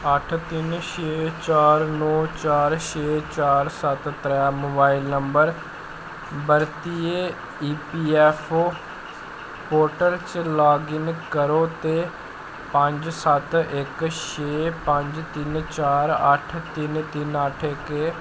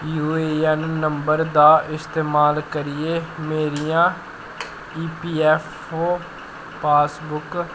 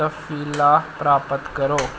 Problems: constant background noise